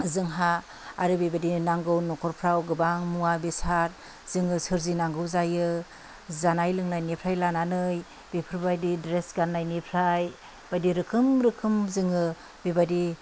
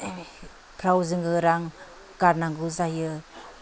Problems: none marked